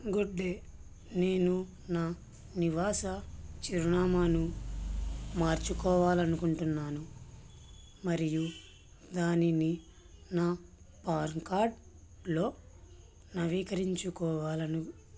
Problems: constant background noise